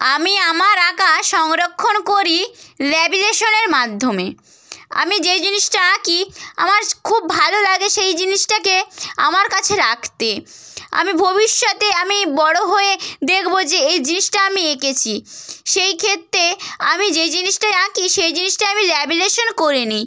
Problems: none marked